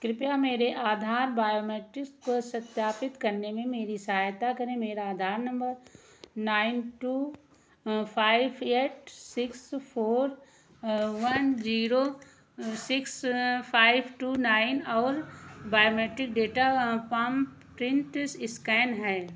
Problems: echo